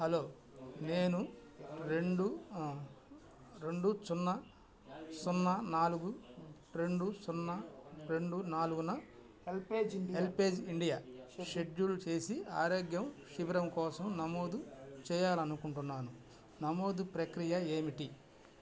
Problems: none marked